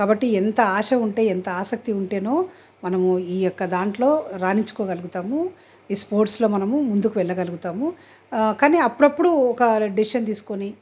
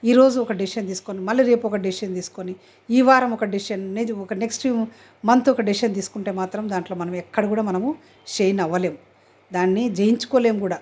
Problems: none marked